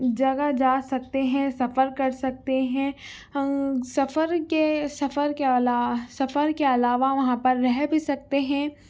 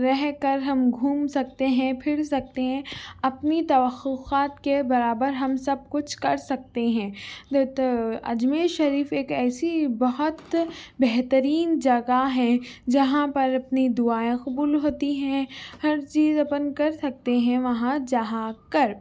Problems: none marked